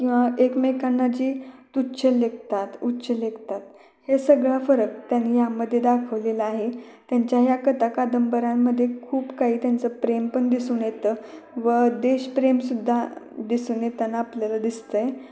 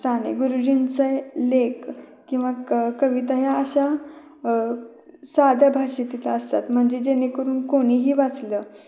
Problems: background conversations at intervals, echo